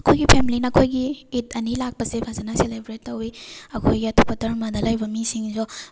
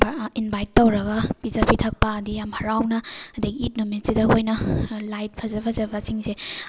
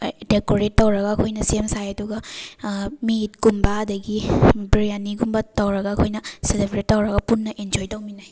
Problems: background sounds at intervals